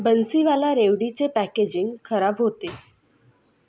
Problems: constant background noise